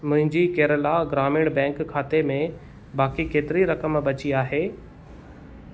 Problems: none marked